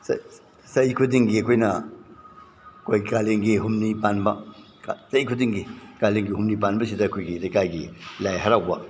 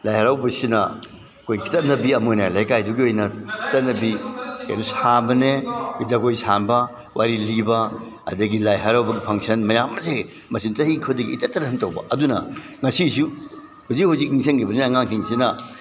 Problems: none marked